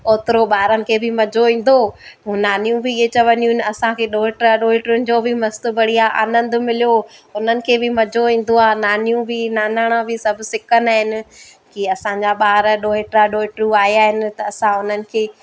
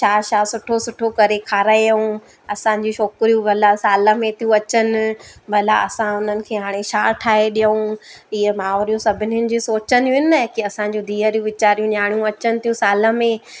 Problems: constant background noise